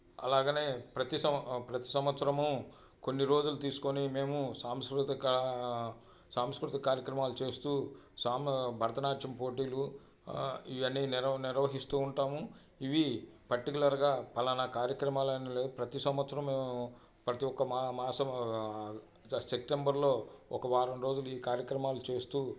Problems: constant background noise, background conversations at intervals